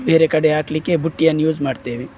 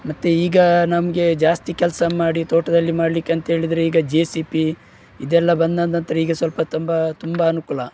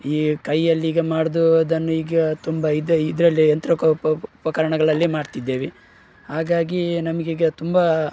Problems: none marked